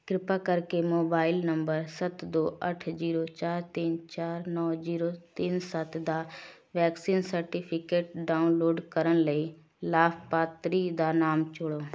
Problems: background sounds at intervals